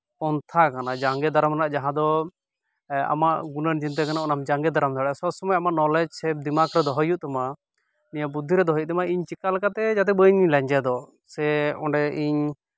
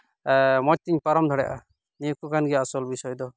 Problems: background sounds at intervals